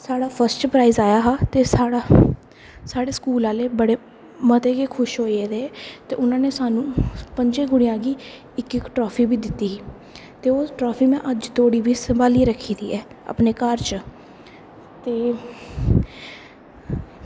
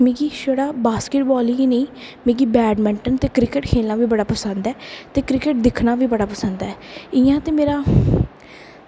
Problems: constant background noise